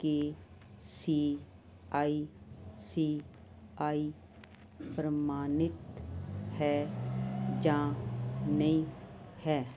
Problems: constant background noise